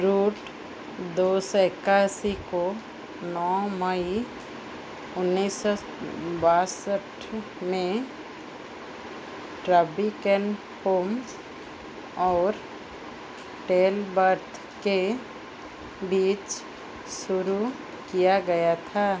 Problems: none marked